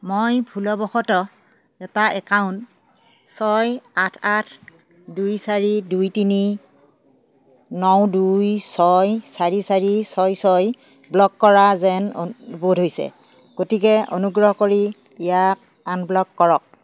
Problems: none marked